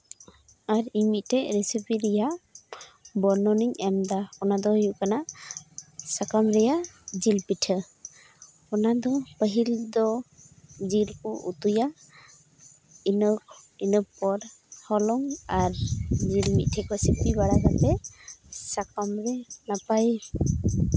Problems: background sounds at intervals